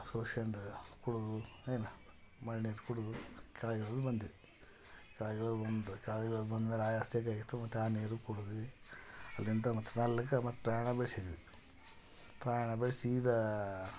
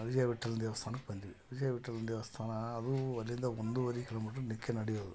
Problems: background conversations at intervals